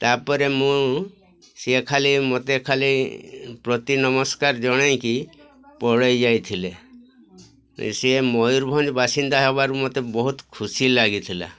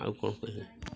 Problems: constant background noise, continuous background conversations